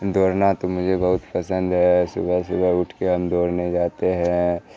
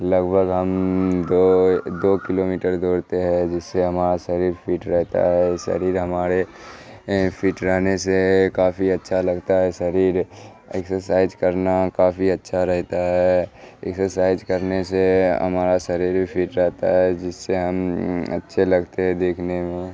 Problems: background sounds at intervals, background conversations at intervals